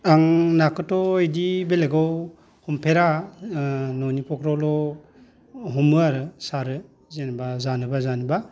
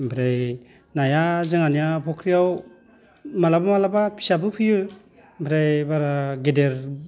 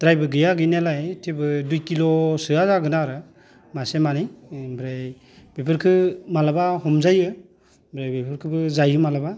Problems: none marked